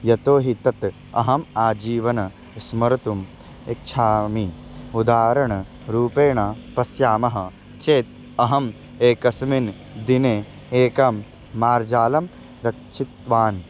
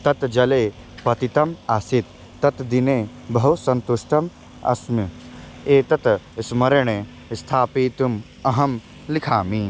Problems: constant background noise